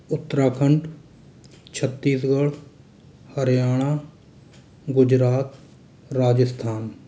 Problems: constant background noise